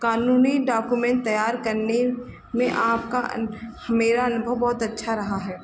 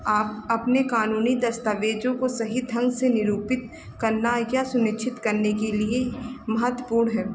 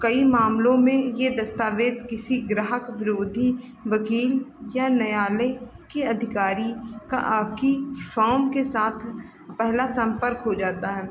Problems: background sounds at intervals